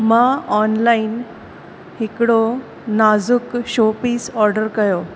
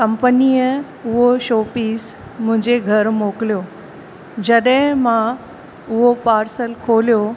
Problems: constant background noise, echo